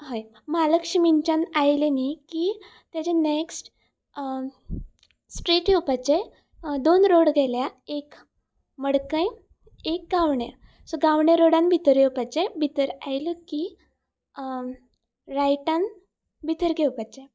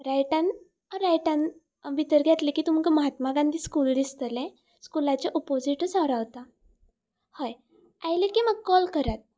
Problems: constant background noise